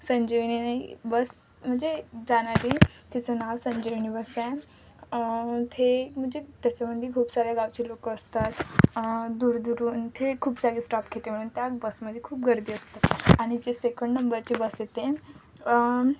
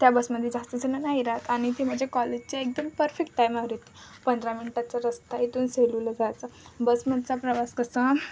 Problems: constant background noise